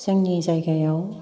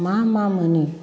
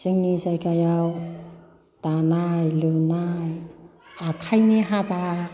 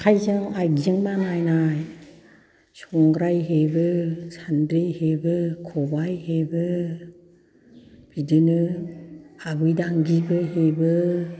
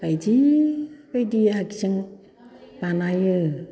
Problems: background conversations at intervals